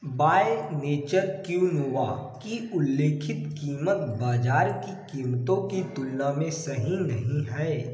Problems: echo